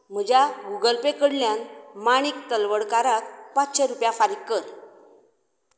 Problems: none marked